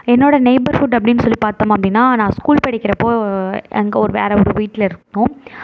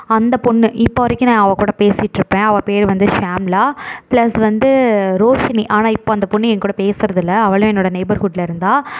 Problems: none marked